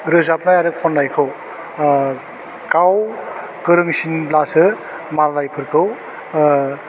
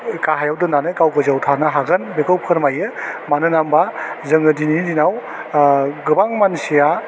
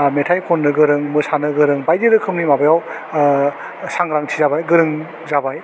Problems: none marked